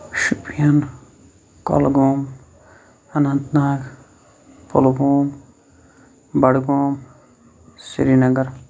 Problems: constant background noise